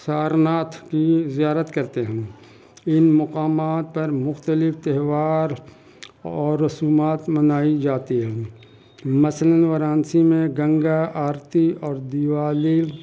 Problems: constant background noise